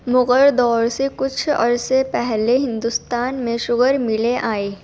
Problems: background sounds at intervals